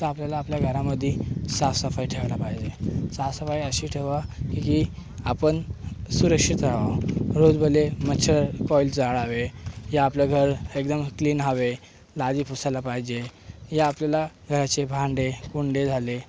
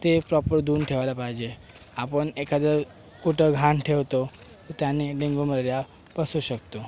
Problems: constant background noise